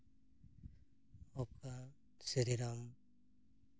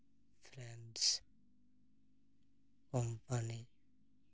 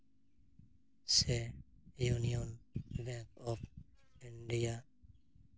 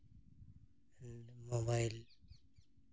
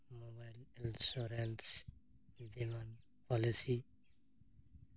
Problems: background sounds at intervals